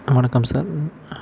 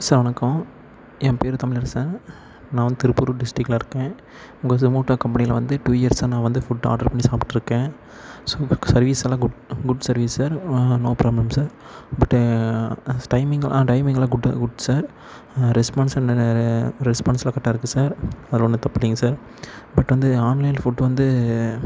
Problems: constant background noise